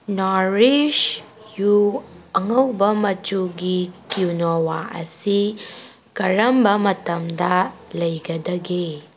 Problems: background sounds at intervals